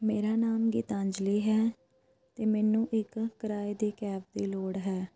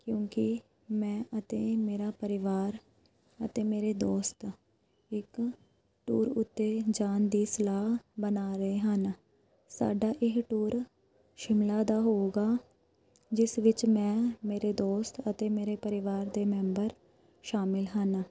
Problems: constant background noise